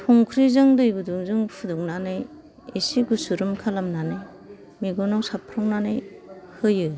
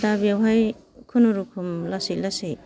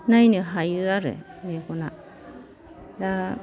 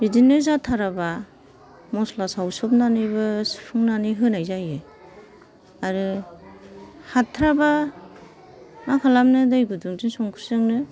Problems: background sounds at intervals